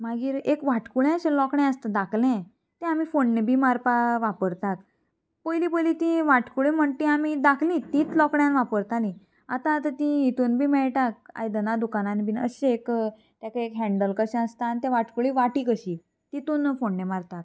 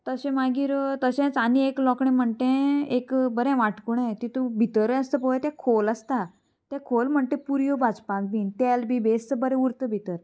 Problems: constant background noise, background conversations at intervals